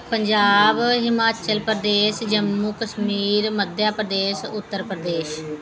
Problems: constant background noise